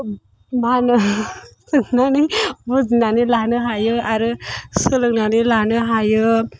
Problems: background sounds at intervals